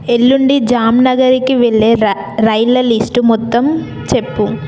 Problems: background sounds at intervals